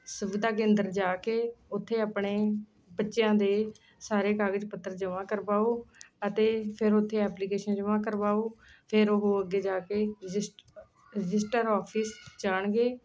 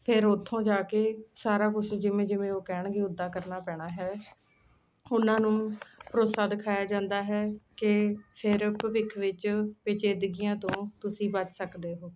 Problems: constant background noise